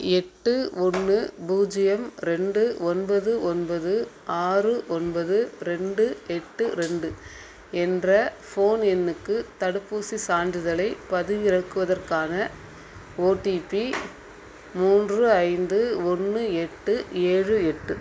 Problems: none marked